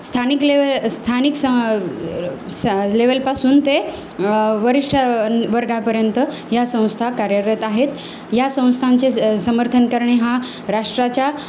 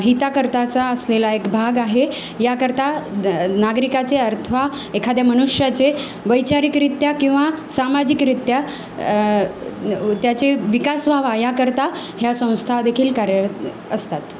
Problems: constant background noise